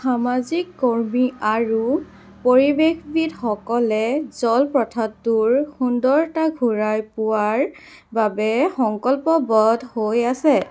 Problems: background sounds at intervals